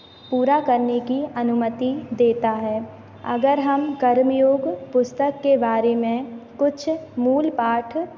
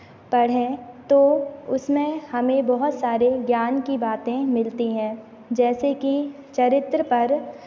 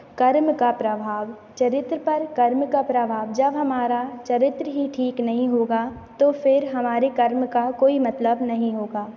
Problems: constant background noise